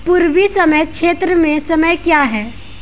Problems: background sounds at intervals